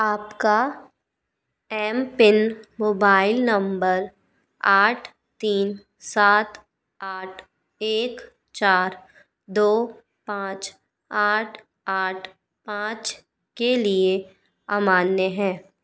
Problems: constant background noise